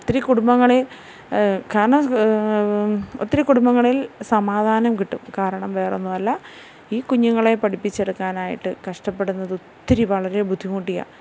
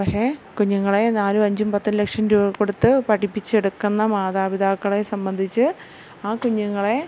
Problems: none marked